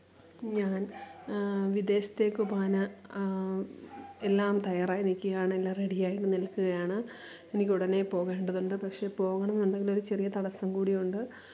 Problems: low volume